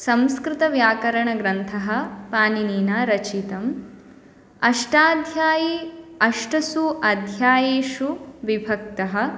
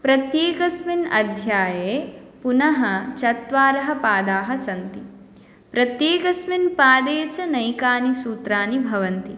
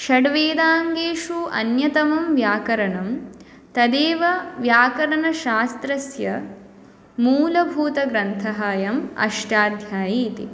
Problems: none marked